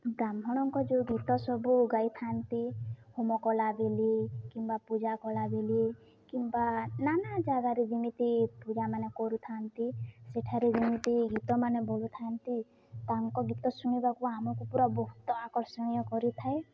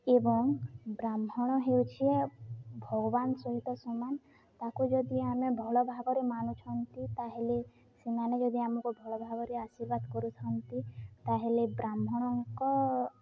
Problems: none marked